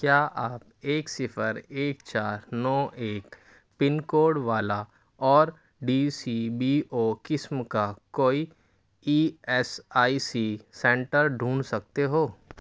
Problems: constant background noise